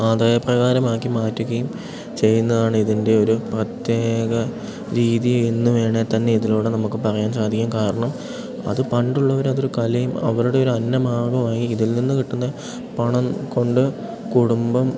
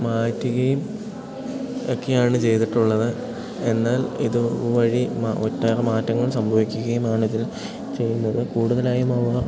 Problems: constant background noise